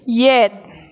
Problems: none marked